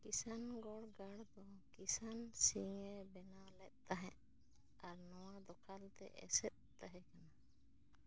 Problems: low volume